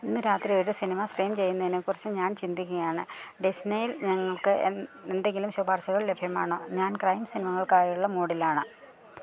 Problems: none marked